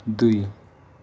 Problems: background sounds at intervals, low volume